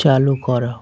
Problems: constant background noise